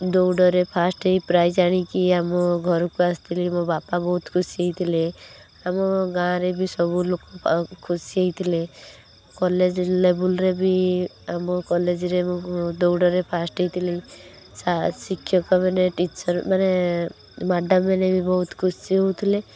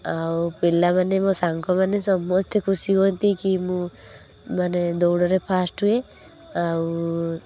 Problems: constant background noise